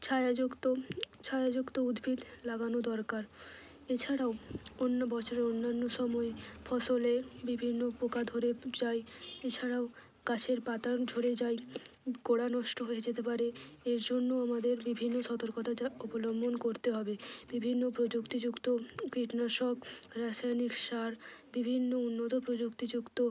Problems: low volume